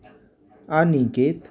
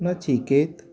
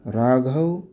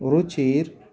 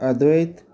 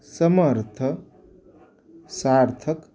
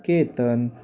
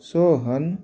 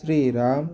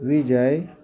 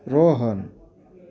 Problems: none marked